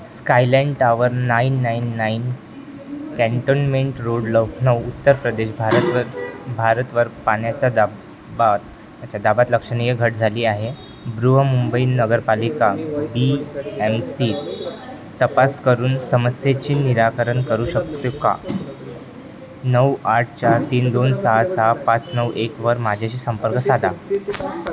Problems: constant background noise, continuous background conversations